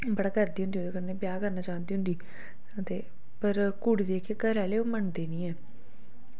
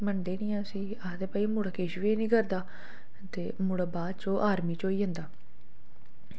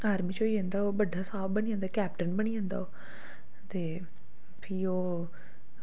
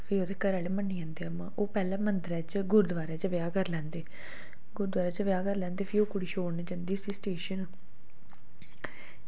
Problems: low volume